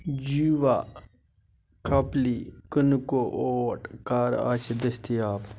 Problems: constant background noise